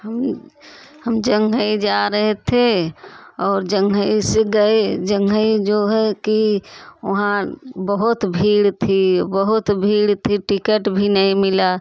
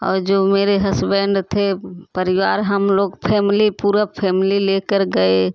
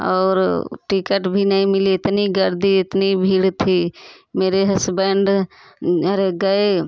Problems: constant background noise, continuous background conversations